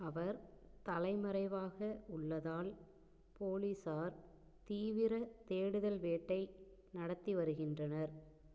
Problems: low volume